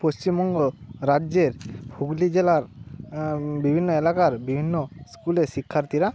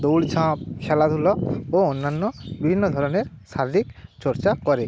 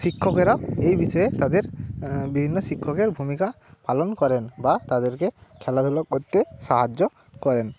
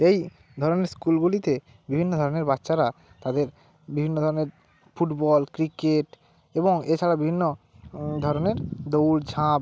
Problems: constant background noise, background conversations at intervals